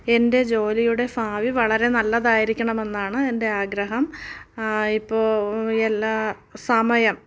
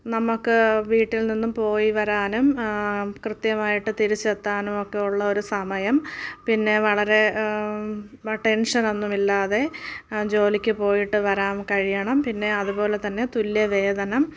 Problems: none marked